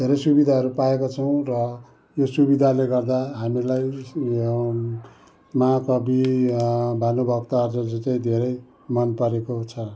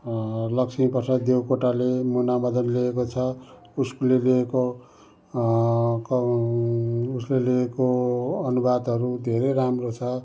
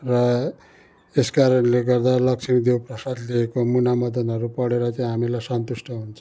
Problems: background sounds at intervals